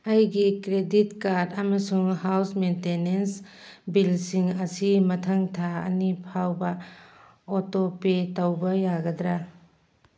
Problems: none marked